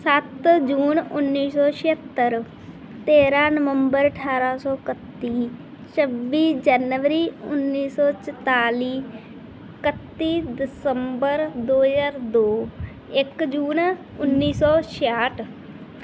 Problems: background sounds at intervals